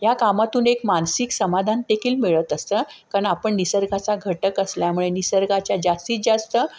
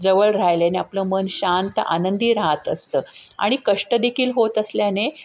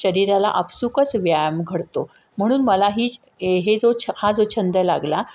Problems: none marked